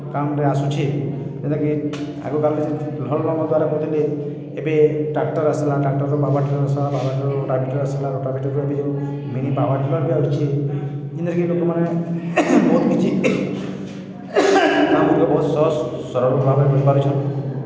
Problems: constant background noise, echo